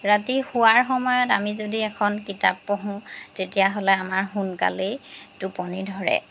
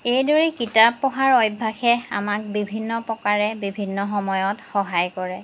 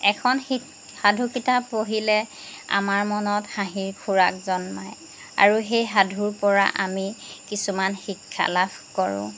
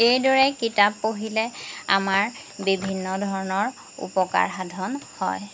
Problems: background sounds at intervals